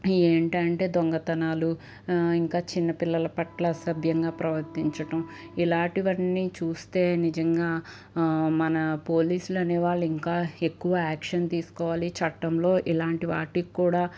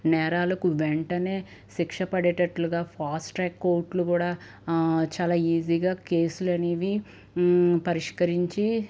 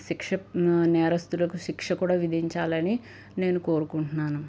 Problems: none marked